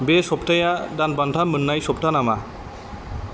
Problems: constant background noise